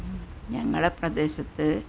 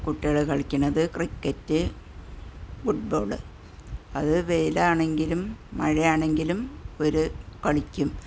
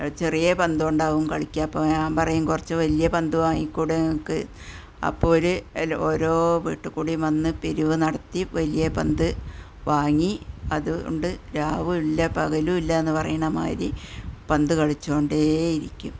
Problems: none marked